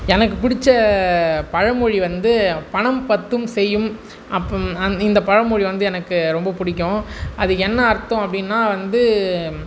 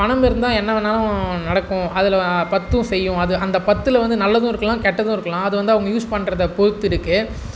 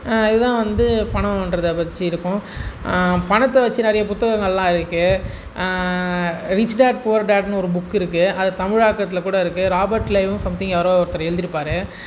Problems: none marked